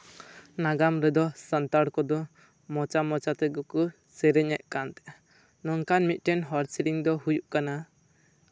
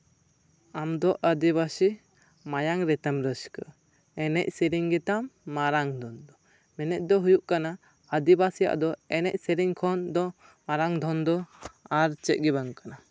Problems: none marked